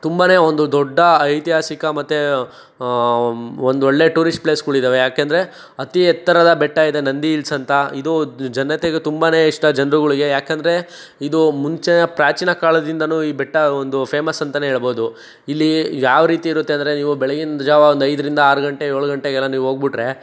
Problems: none marked